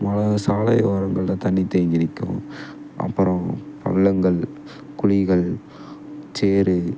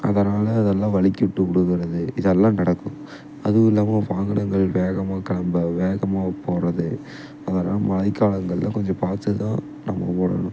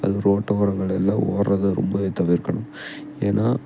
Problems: background sounds at intervals